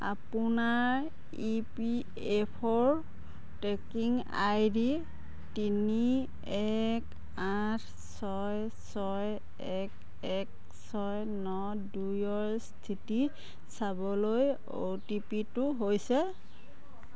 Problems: background conversations at intervals